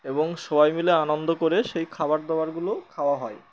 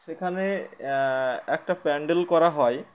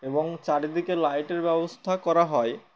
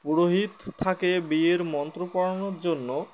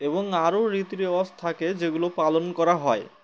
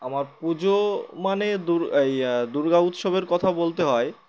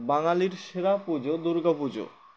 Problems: constant background noise, background conversations at intervals